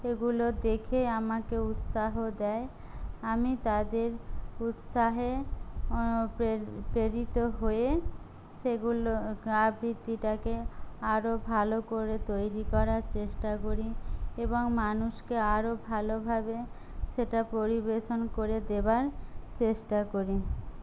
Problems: low volume